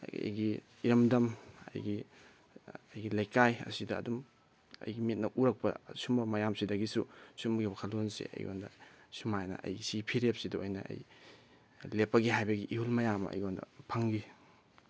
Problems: none marked